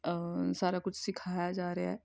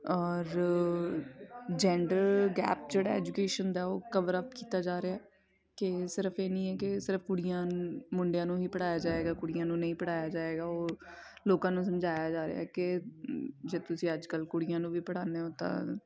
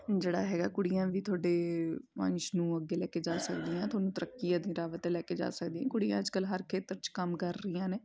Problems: continuous background conversations